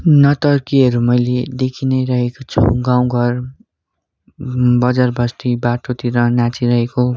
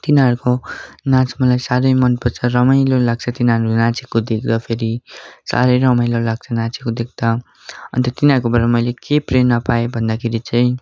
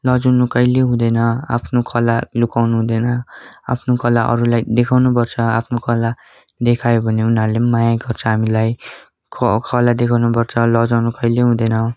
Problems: continuous background conversations